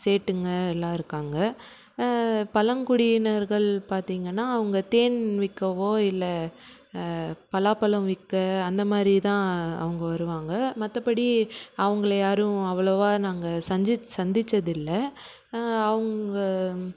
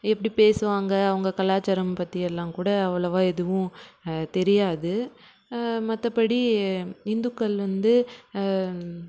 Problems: background sounds at intervals